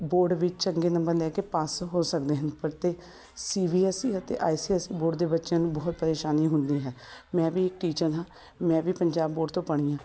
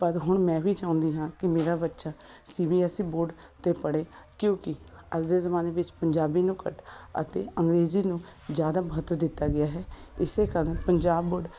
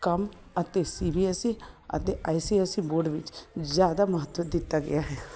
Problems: none marked